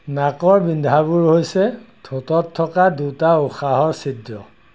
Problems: none marked